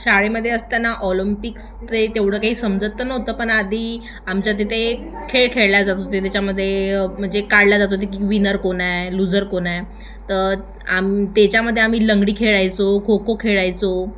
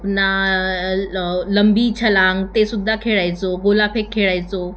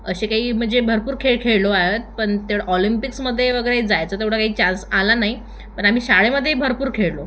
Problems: constant background noise, continuous background conversations